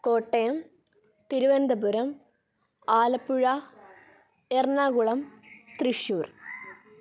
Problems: background sounds at intervals